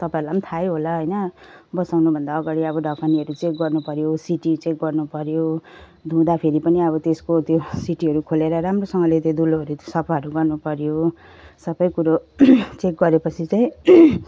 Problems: none marked